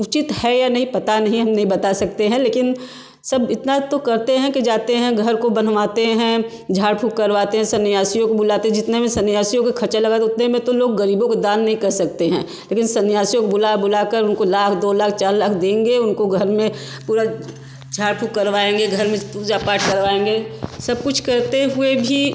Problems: none marked